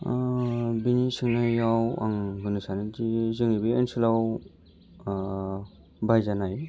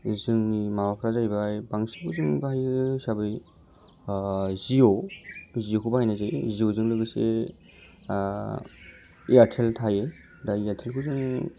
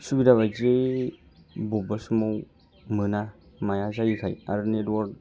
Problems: low volume